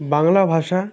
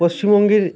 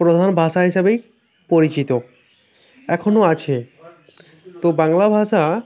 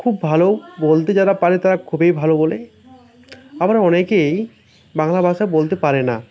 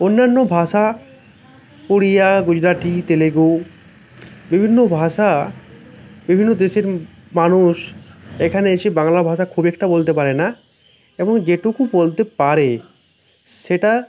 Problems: none marked